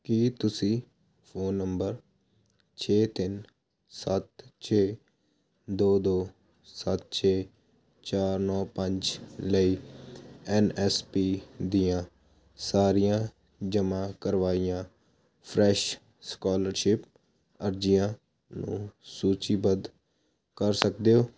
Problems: constant background noise